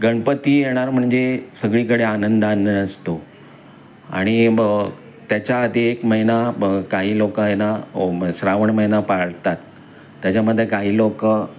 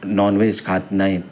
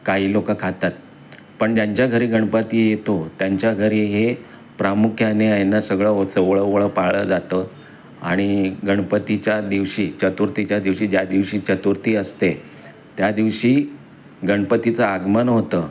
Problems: constant background noise, continuous background conversations